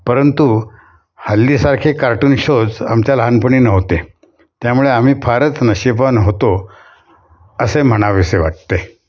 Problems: background sounds at intervals